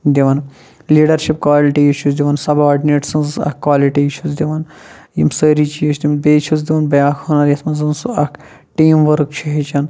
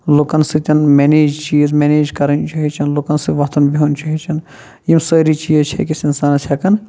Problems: low volume